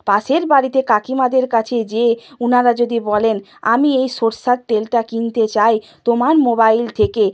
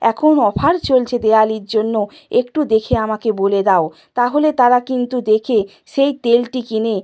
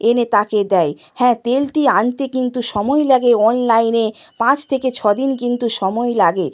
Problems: constant background noise